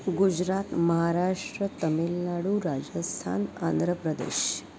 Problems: none marked